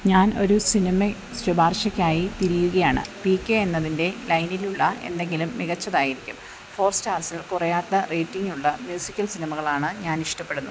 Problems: constant background noise